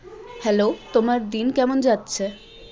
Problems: constant background noise, continuous background conversations